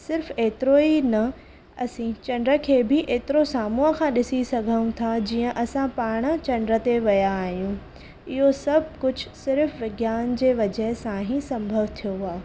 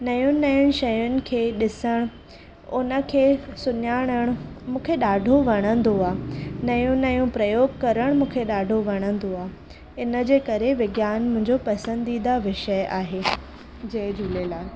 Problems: constant background noise